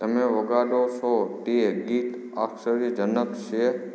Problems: low volume